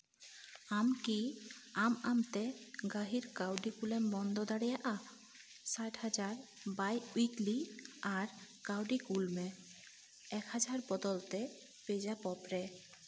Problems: background sounds at intervals